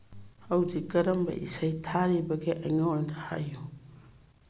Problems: low volume